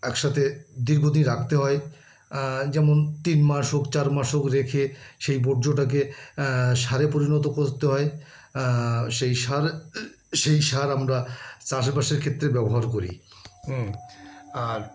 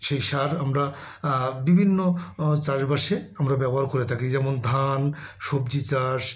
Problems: constant background noise, background conversations at intervals